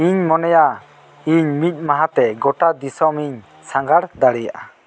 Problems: constant background noise